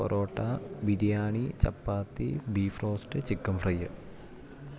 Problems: background sounds at intervals